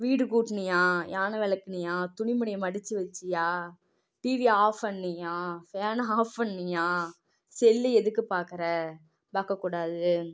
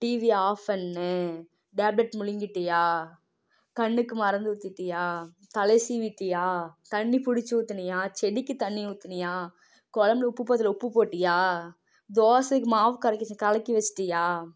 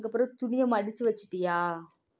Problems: low volume